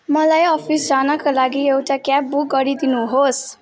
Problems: background sounds at intervals